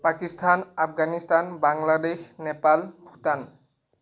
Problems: none marked